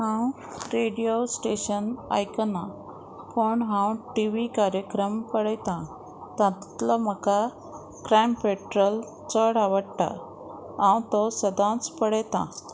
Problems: none marked